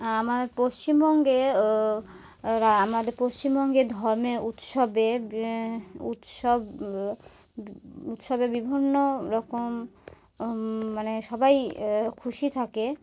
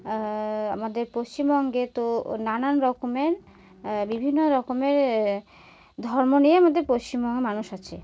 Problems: background sounds at intervals